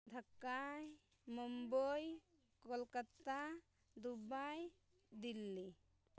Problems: low volume